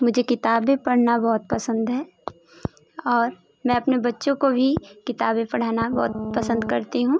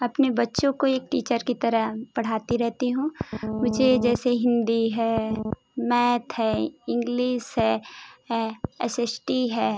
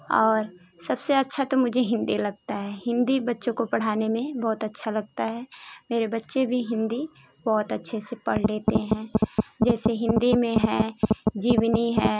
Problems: constant background noise